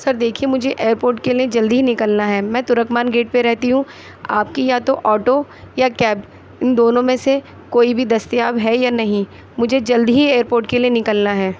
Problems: none marked